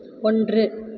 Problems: constant background noise